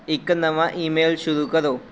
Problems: constant background noise